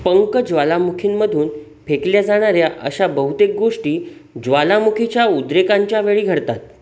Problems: constant background noise